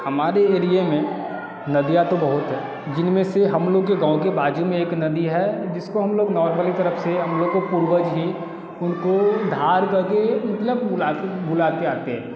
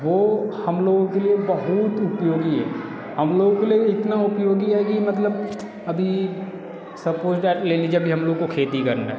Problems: constant background noise